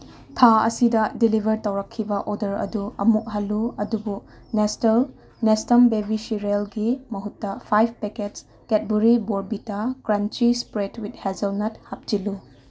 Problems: none marked